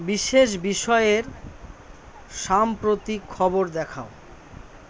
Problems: constant background noise